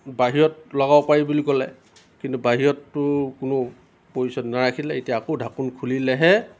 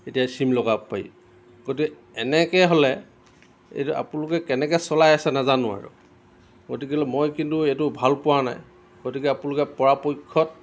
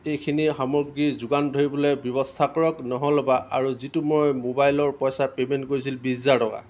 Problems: none marked